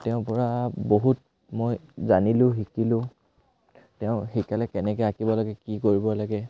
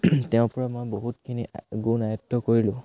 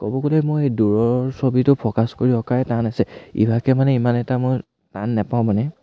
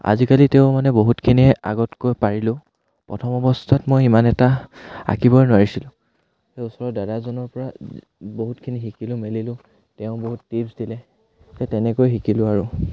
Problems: none marked